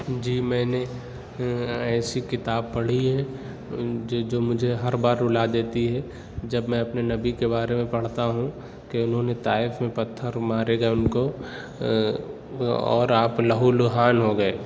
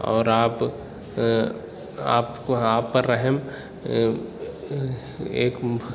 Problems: constant background noise